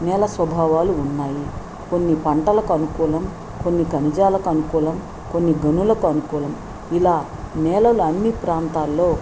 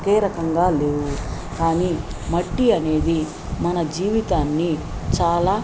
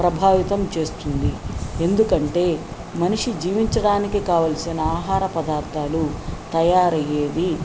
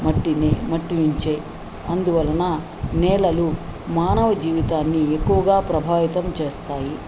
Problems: none marked